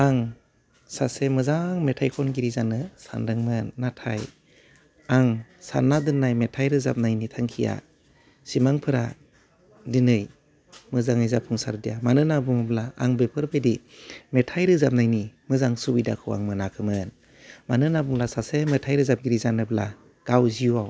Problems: low volume